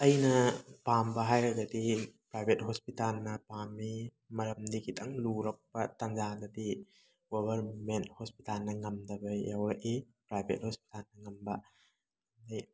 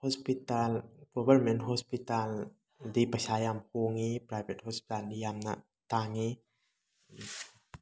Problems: none marked